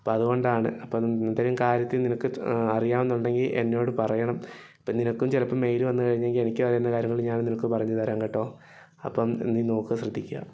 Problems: none marked